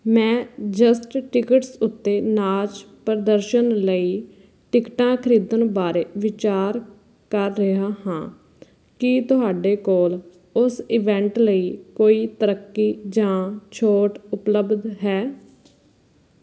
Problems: background sounds at intervals